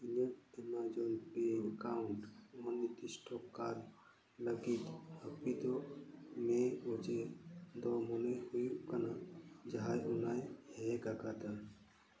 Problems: none marked